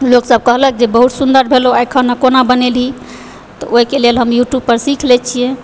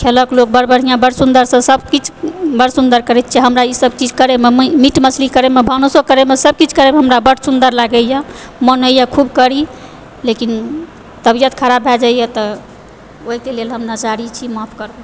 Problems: background sounds at intervals